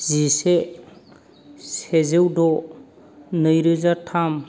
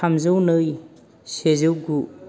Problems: low volume